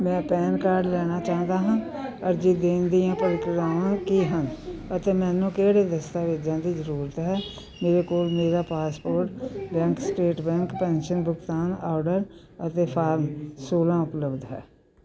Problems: continuous background conversations